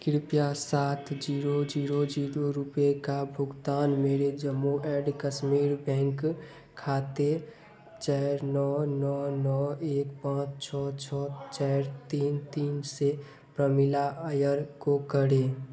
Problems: constant background noise, background conversations at intervals